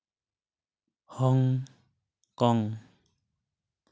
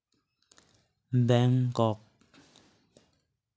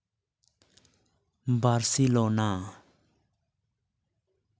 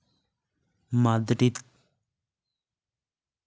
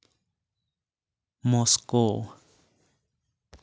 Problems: none marked